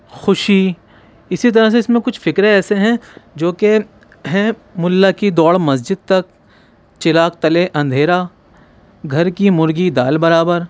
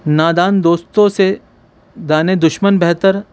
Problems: background sounds at intervals